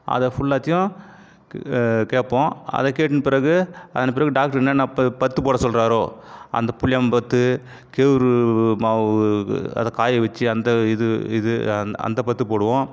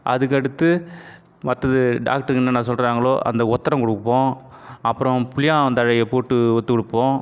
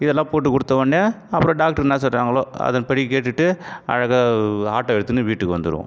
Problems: constant background noise